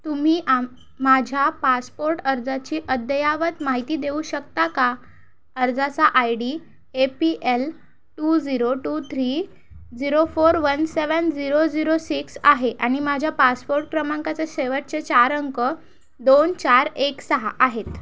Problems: background sounds at intervals